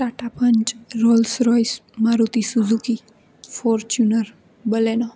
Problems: constant background noise